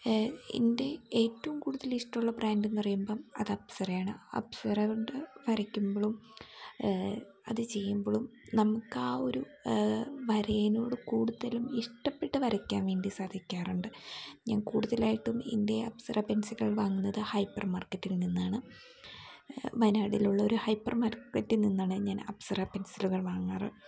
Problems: background sounds at intervals